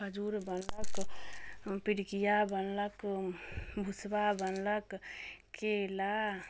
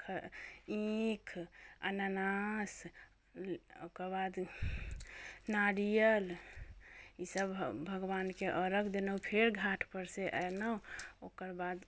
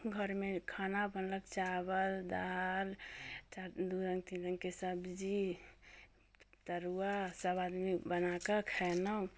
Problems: none marked